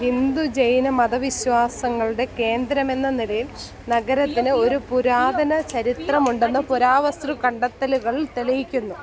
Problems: none marked